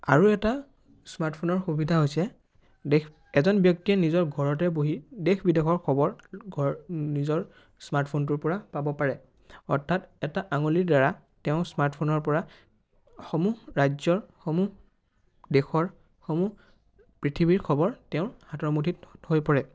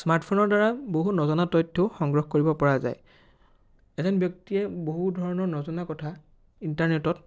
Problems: none marked